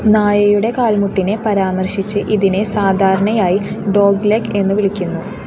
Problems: constant background noise